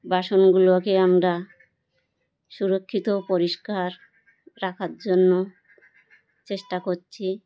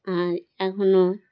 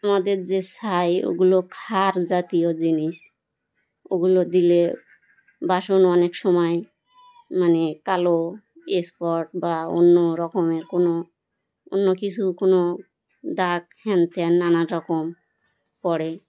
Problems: none marked